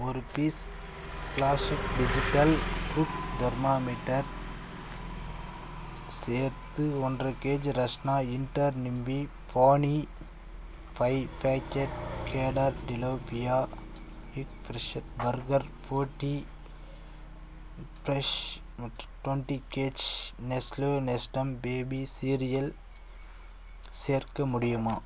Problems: none marked